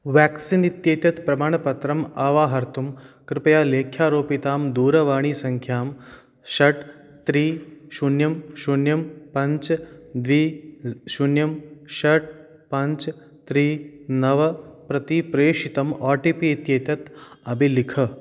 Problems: none marked